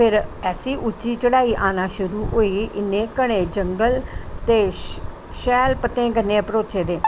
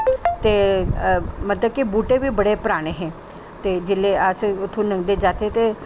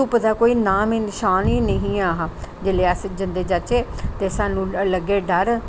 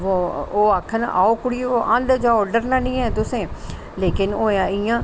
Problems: constant background noise